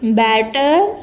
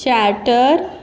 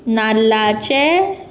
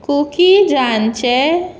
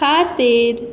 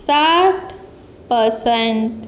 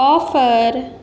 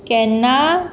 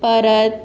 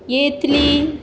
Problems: none marked